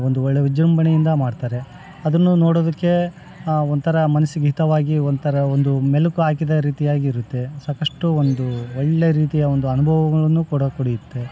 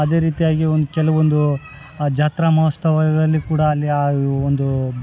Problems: background conversations at intervals